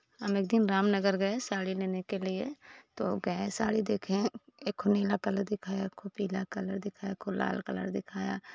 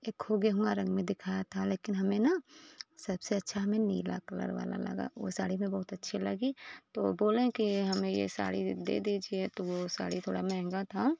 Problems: none marked